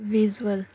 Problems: constant background noise